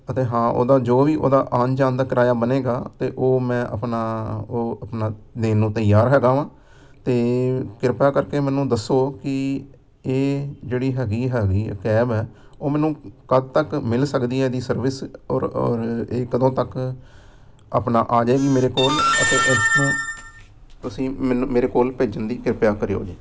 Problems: background sounds at intervals